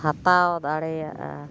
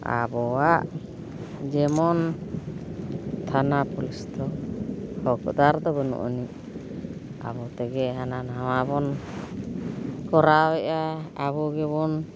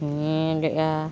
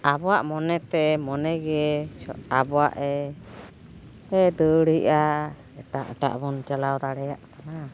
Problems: none marked